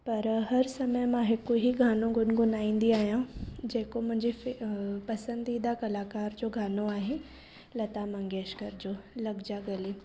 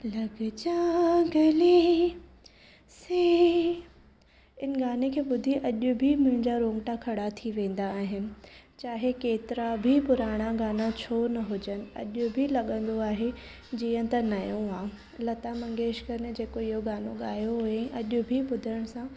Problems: background sounds at intervals